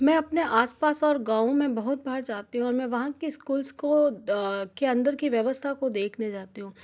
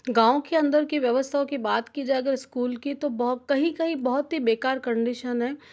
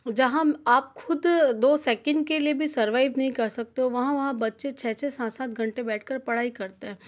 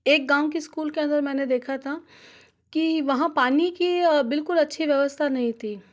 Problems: none marked